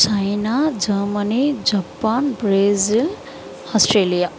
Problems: none marked